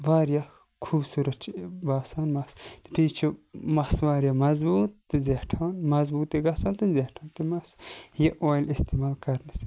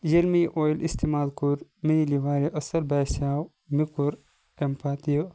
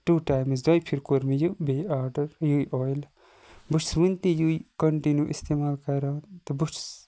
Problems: background sounds at intervals